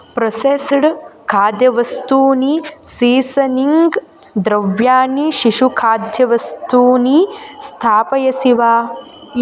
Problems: constant background noise, continuous background conversations